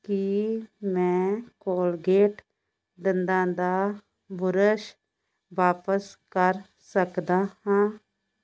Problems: constant background noise